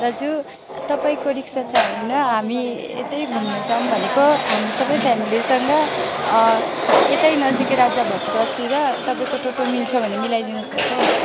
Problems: constant background noise